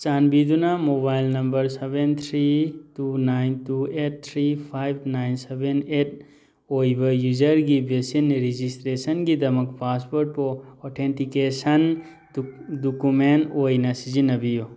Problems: background sounds at intervals